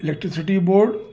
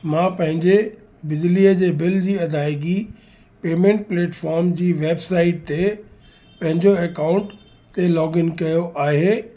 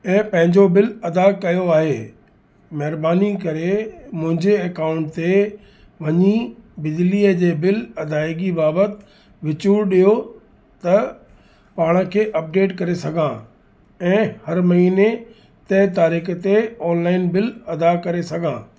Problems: constant background noise, echo